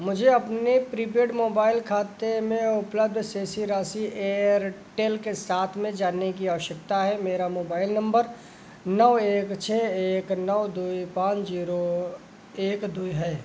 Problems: background sounds at intervals